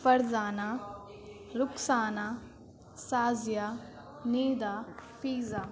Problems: constant background noise, low volume